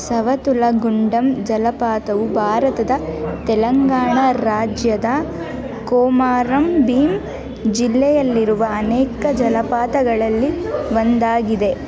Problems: background sounds at intervals